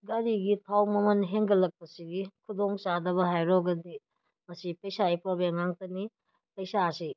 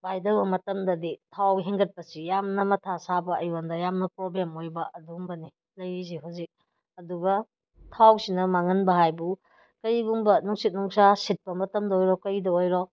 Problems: none marked